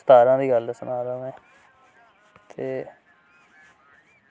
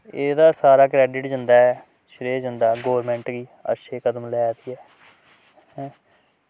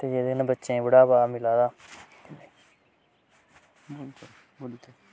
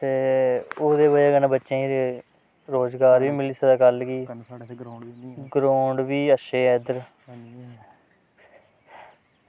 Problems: none marked